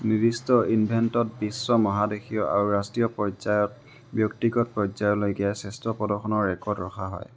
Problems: none marked